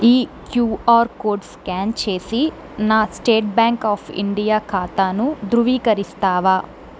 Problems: constant background noise